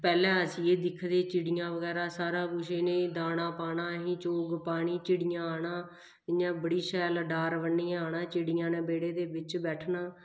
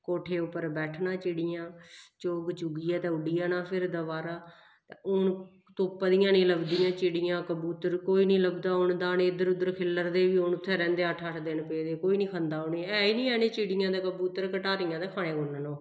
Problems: none marked